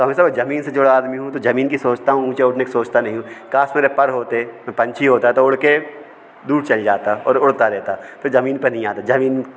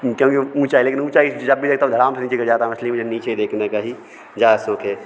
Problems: constant background noise, background conversations at intervals